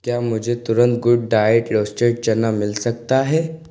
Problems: constant background noise, echo